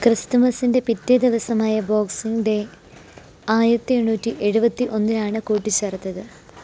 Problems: constant background noise